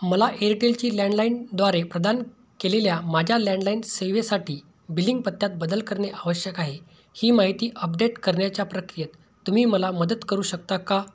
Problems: none marked